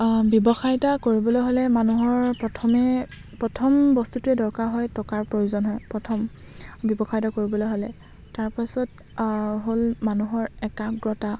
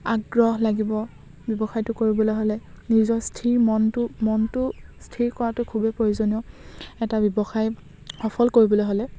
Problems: constant background noise